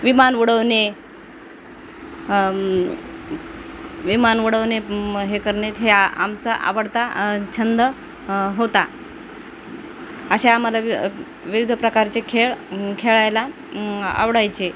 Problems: constant background noise